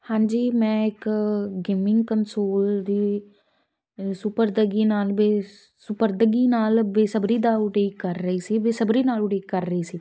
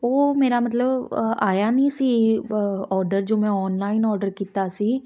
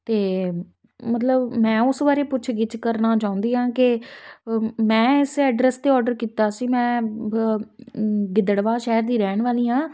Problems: none marked